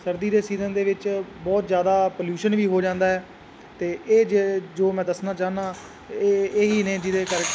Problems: constant background noise